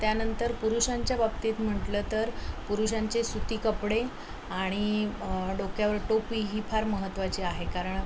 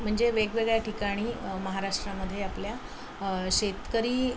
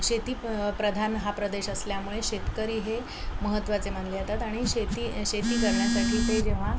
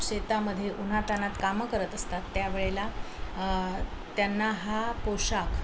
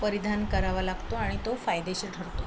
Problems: constant background noise